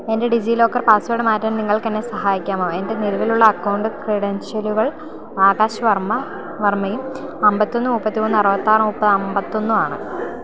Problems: constant background noise